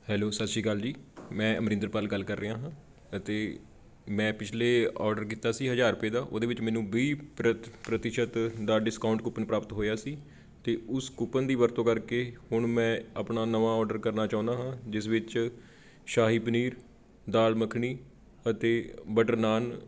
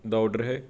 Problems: background sounds at intervals